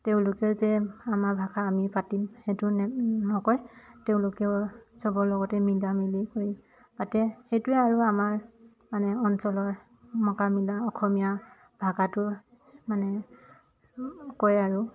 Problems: constant background noise, background conversations at intervals